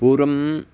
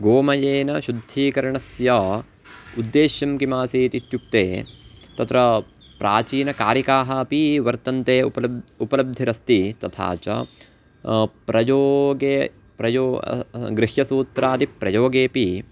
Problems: none marked